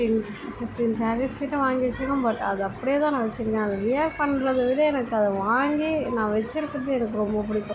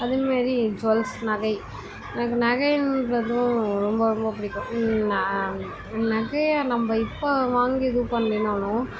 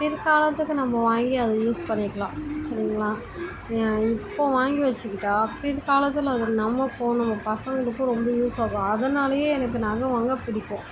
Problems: constant background noise, continuous background conversations